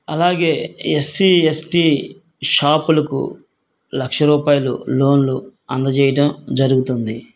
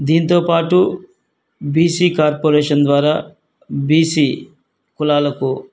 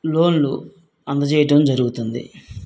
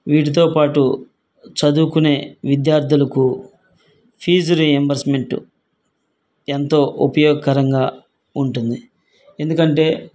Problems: none marked